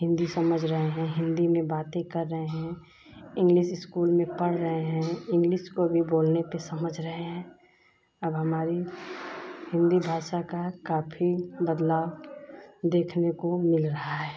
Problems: none marked